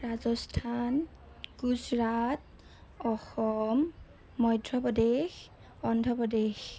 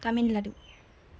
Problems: none marked